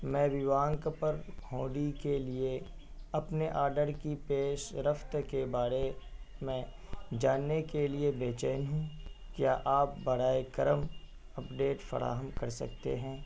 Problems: constant background noise